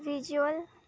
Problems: none marked